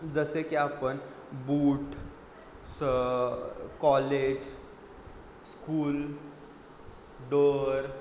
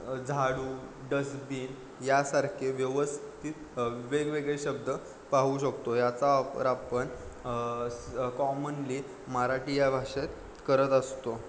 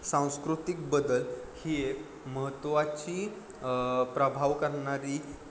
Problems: background sounds at intervals